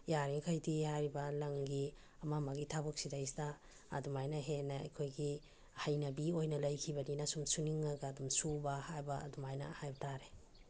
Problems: none marked